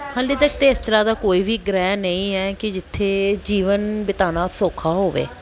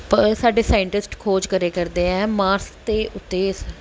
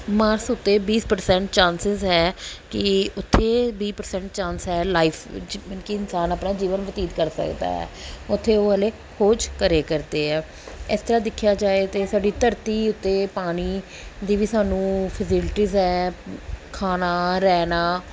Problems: background sounds at intervals